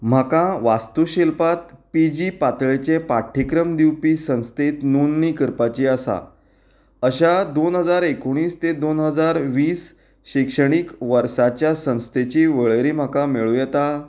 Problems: none marked